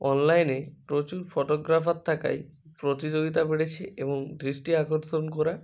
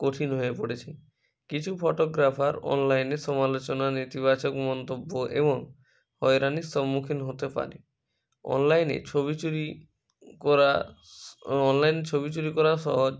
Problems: none marked